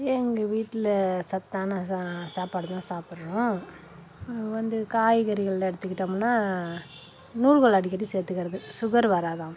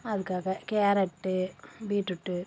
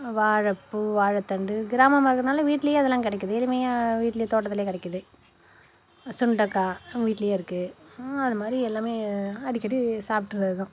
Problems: constant background noise